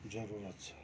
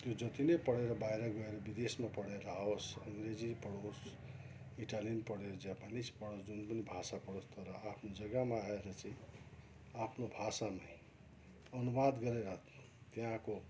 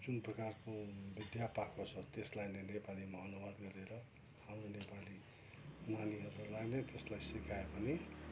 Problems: background sounds at intervals, low volume